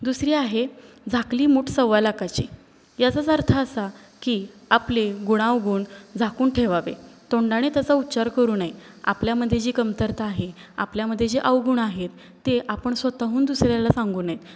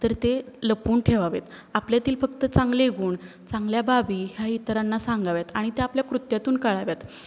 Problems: constant background noise